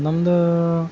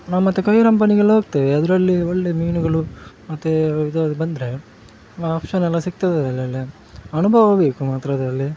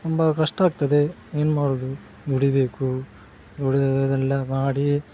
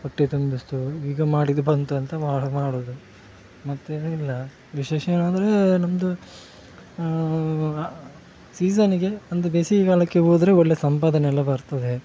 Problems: background sounds at intervals